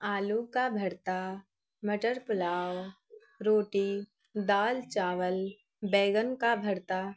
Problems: none marked